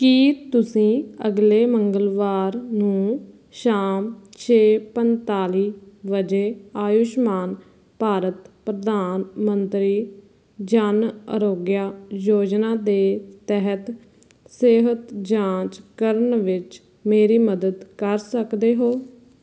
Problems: constant background noise